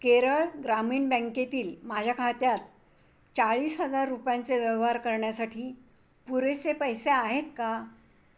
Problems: constant background noise